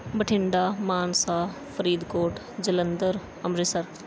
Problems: background sounds at intervals